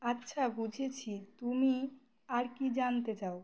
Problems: none marked